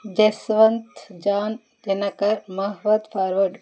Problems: none marked